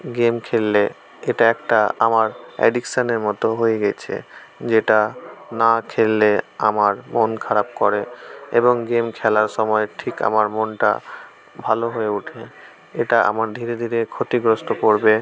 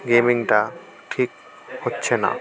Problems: none marked